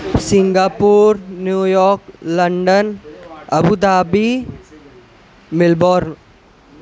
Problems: constant background noise, background conversations at intervals